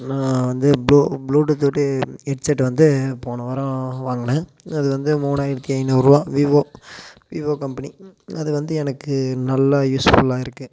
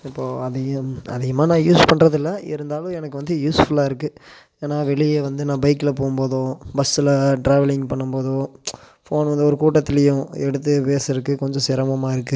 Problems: constant background noise